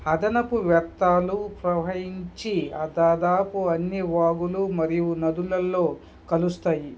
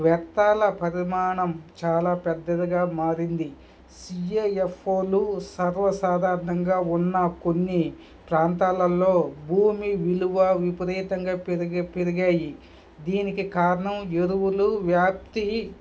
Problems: background sounds at intervals, background conversations at intervals